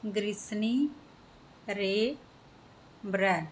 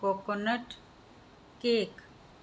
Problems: background sounds at intervals